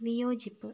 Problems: low volume